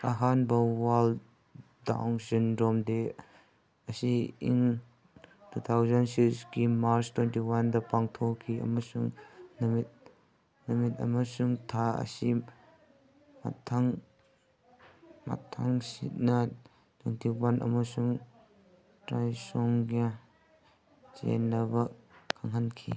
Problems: background conversations at intervals